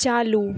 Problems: constant background noise